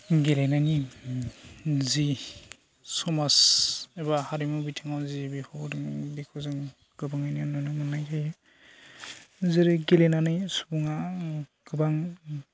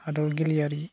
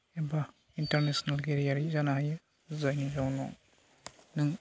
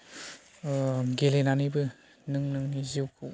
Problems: constant background noise